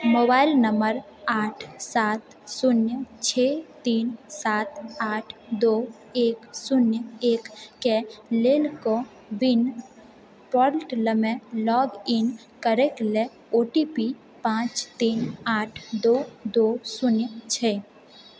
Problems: background sounds at intervals